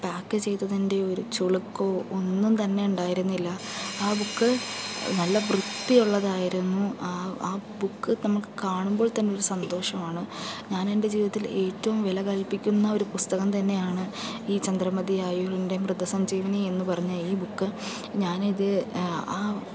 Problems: background sounds at intervals